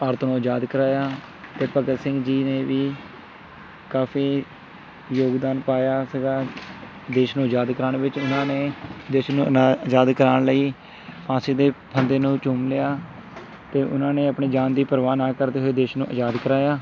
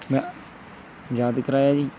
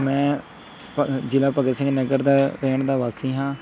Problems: constant background noise, background conversations at intervals